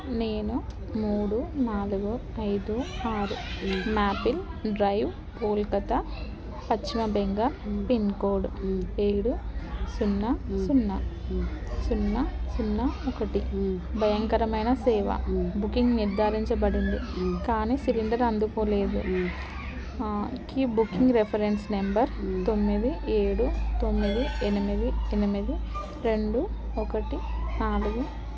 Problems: constant background noise